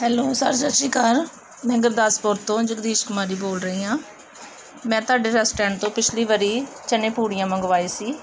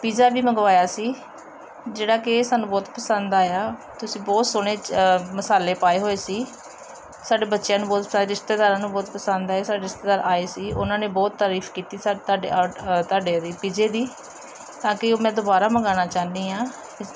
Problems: background sounds at intervals